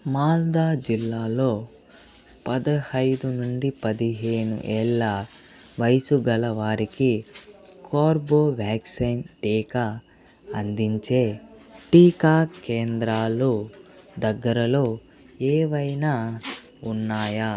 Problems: background sounds at intervals